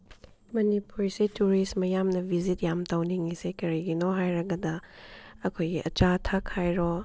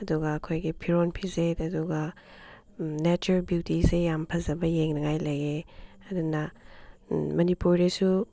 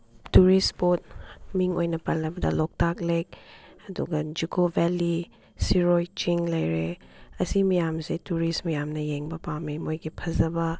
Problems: background sounds at intervals